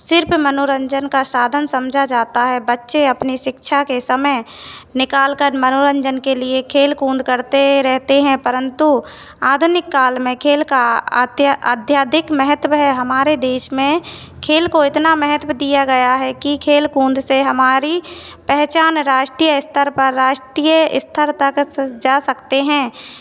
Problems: constant background noise